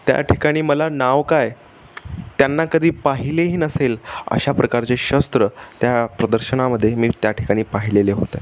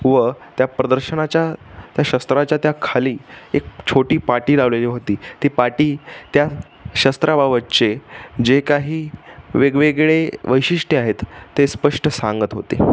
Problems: none marked